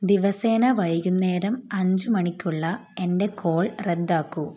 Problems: none marked